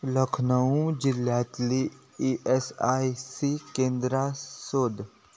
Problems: none marked